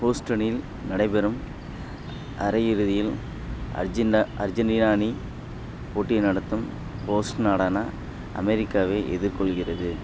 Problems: constant background noise